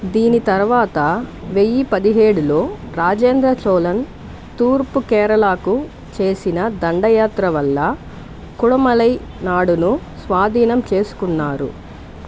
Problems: constant background noise